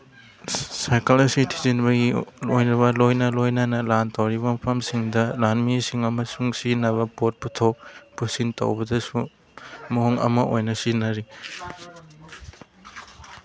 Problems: background sounds at intervals, background conversations at intervals